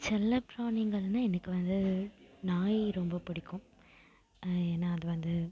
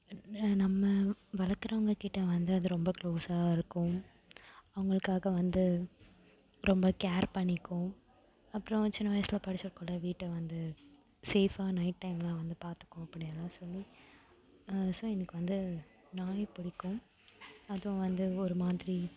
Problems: background sounds at intervals